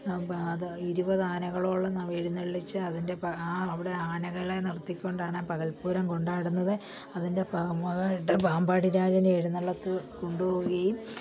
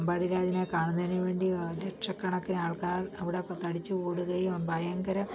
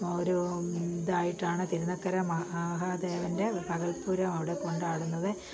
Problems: low volume